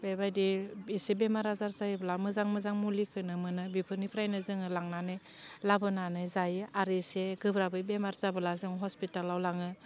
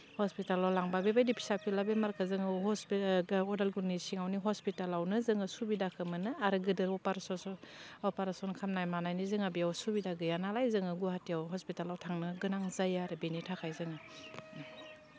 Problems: constant background noise